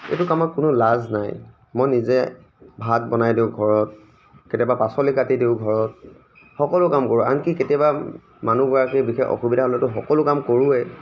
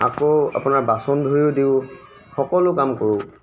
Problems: none marked